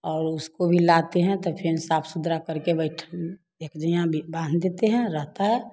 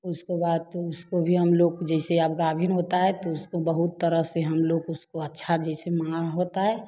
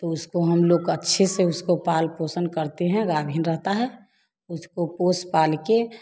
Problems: constant background noise